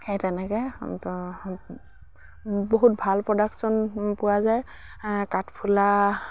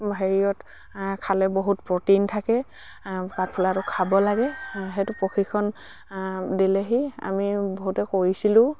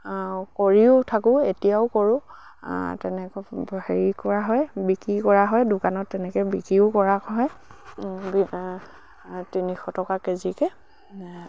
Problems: none marked